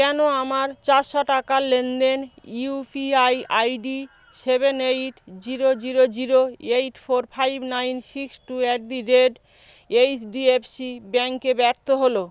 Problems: background sounds at intervals